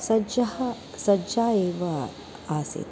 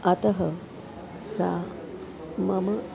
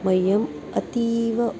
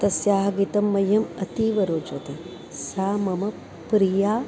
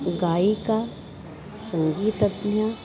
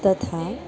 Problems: none marked